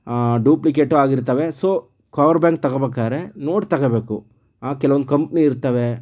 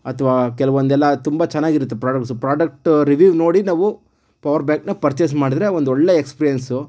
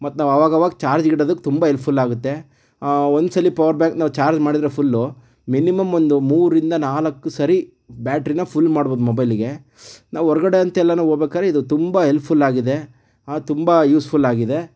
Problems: none marked